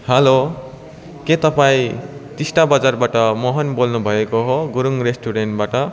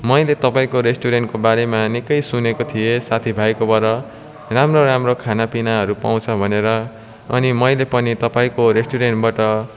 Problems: continuous background conversations